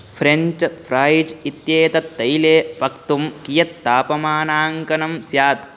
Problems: constant background noise